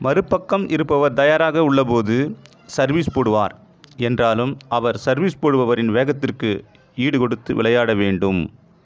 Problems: echo